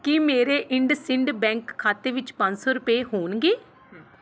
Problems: none marked